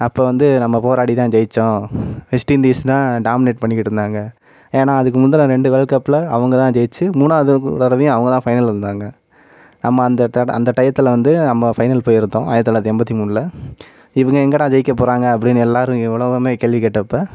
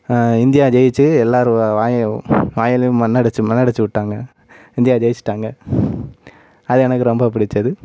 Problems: none marked